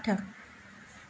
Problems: constant background noise